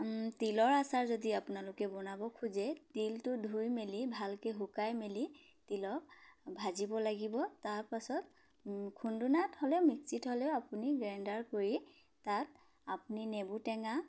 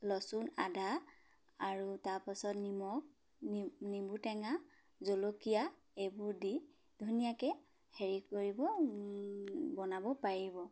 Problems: background sounds at intervals